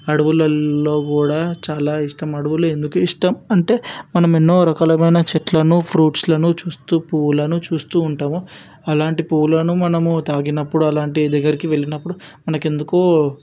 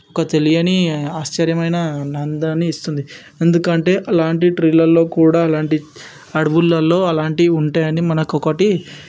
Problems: background sounds at intervals